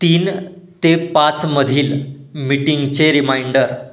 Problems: none marked